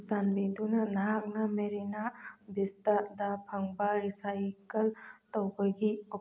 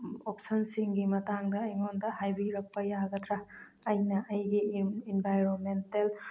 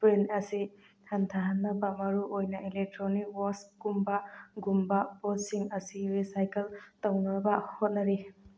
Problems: none marked